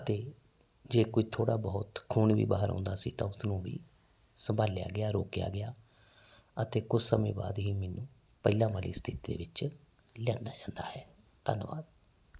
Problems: constant background noise